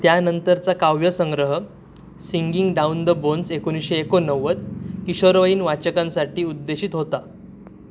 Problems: none marked